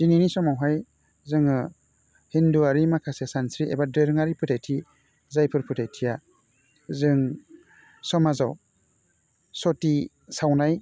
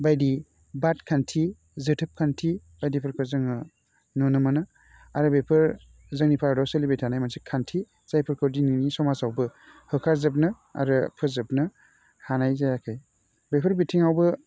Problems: none marked